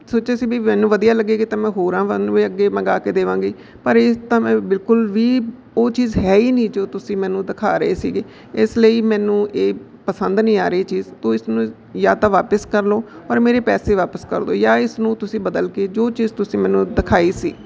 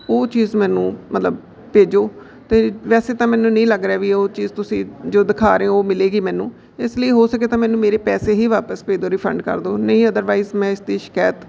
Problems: background sounds at intervals